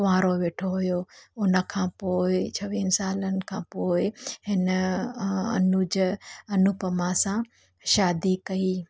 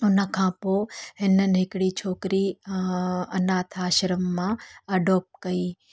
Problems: none marked